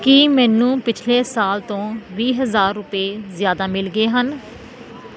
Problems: constant background noise